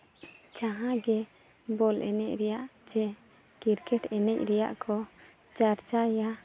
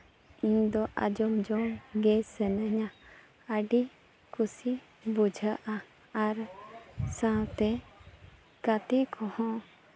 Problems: none marked